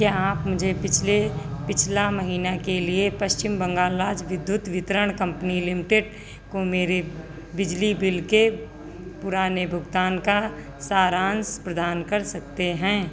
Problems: constant background noise